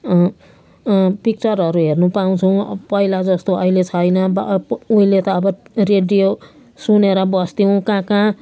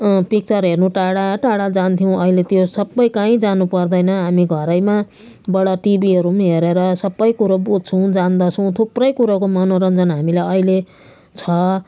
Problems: background sounds at intervals